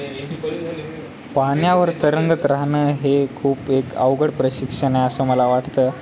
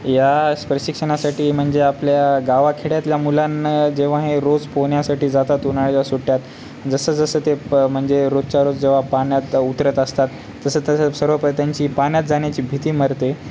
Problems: constant background noise, background conversations at intervals